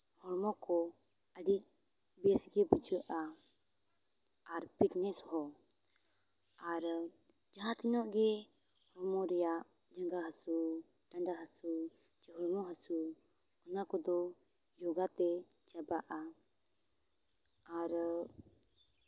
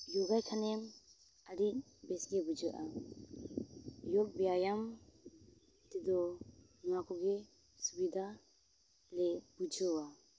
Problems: background sounds at intervals